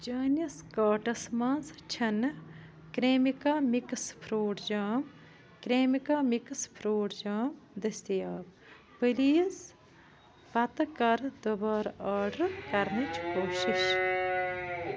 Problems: background sounds at intervals